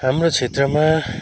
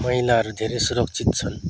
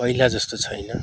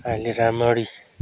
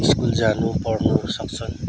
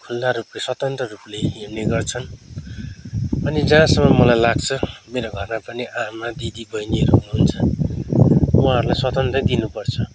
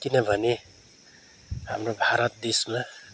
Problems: none marked